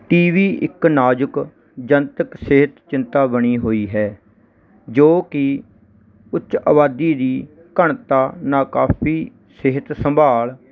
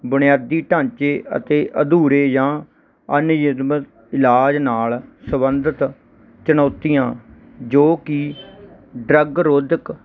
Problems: none marked